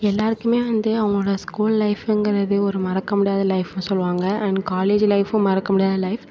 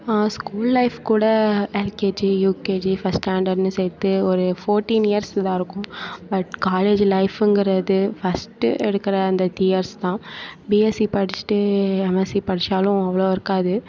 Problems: continuous background conversations